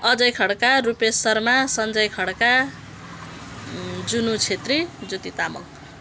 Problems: background sounds at intervals